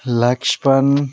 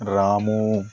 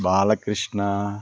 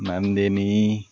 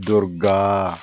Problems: background sounds at intervals, background conversations at intervals